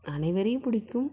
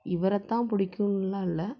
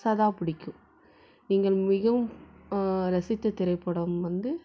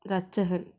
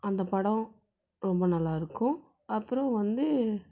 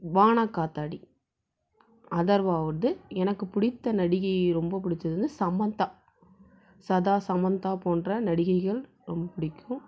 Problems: none marked